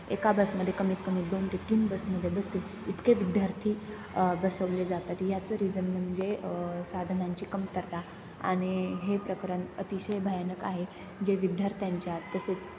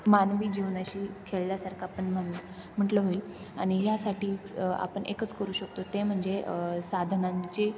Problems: constant background noise